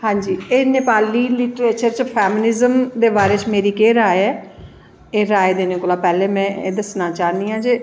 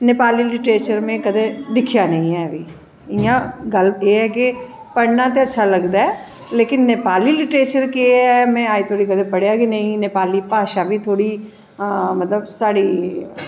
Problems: echo